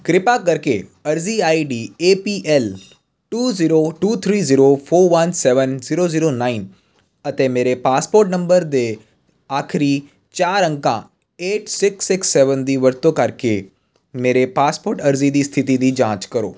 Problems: constant background noise